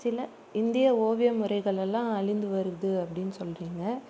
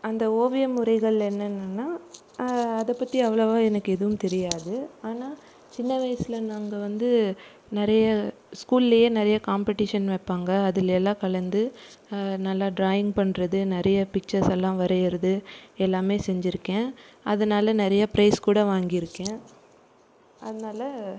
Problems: none marked